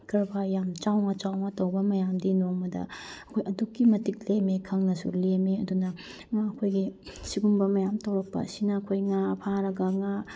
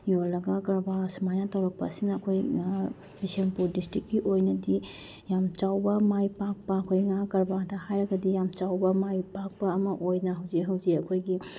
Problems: none marked